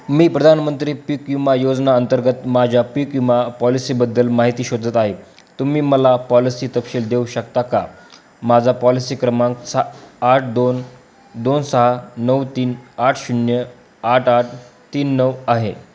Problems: constant background noise